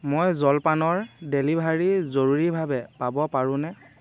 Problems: none marked